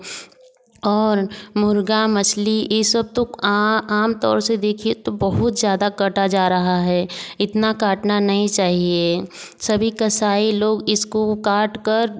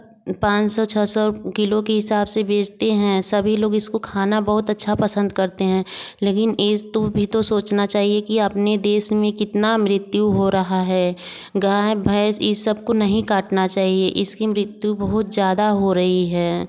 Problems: background sounds at intervals, background conversations at intervals